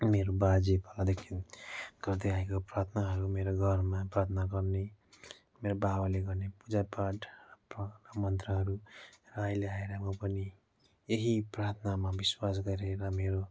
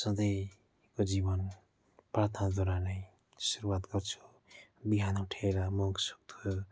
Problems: background sounds at intervals